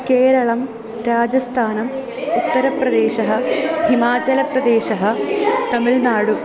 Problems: continuous background conversations